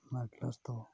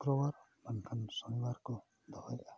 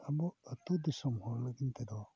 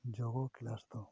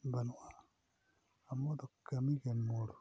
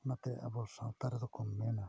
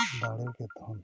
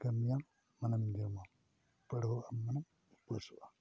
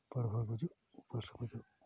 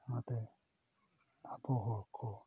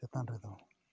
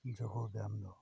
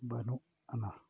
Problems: background sounds at intervals, low volume